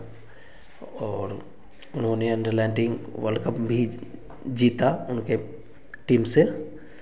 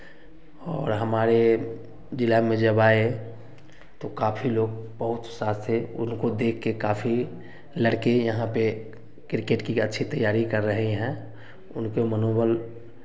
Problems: constant background noise